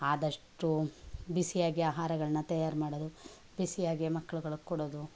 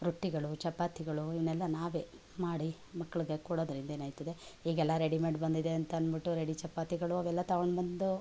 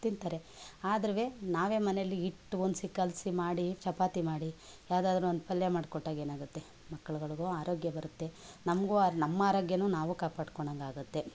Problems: background conversations at intervals